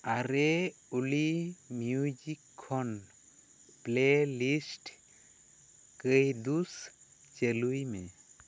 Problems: none marked